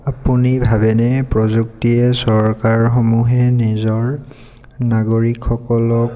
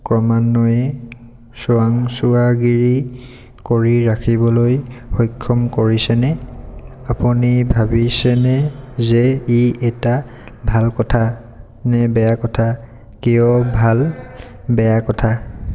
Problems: none marked